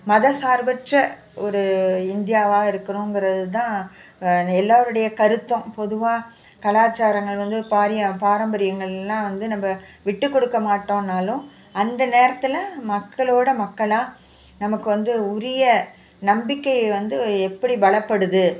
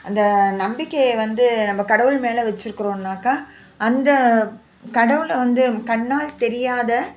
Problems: constant background noise